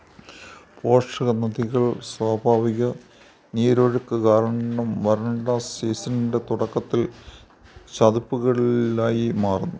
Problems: background sounds at intervals